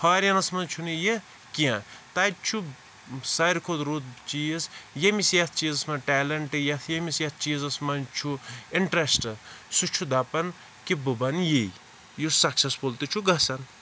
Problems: constant background noise